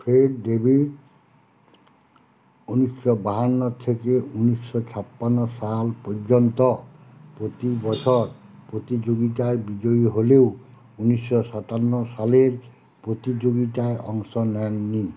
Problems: none marked